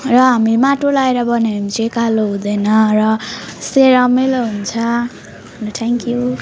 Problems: continuous background conversations